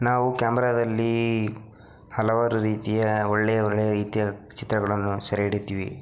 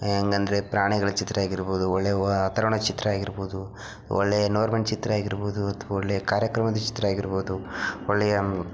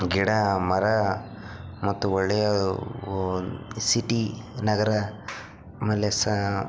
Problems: background sounds at intervals, low volume